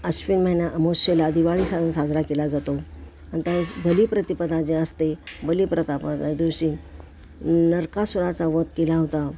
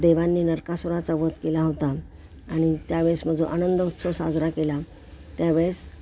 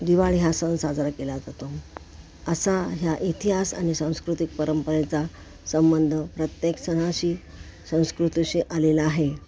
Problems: background sounds at intervals